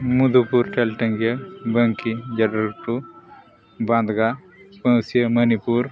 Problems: constant background noise, background conversations at intervals